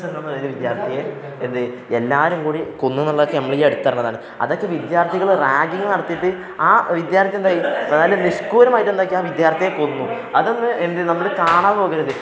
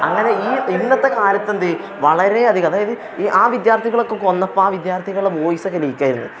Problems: background conversations at intervals